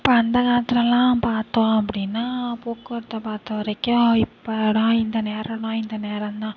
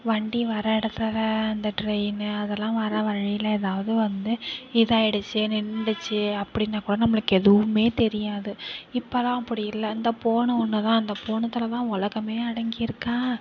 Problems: none marked